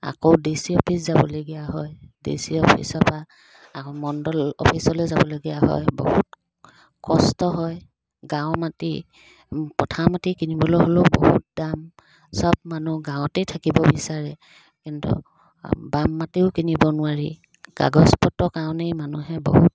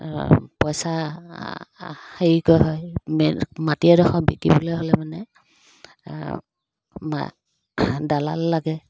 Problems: constant background noise